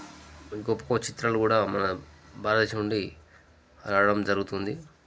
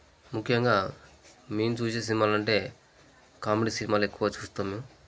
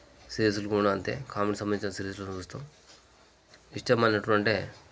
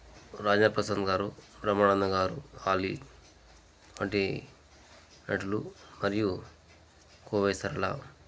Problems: background sounds at intervals